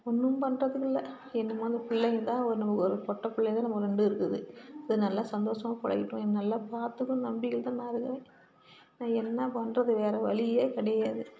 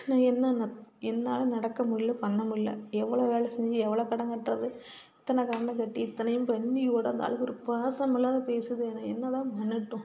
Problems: background sounds at intervals, background conversations at intervals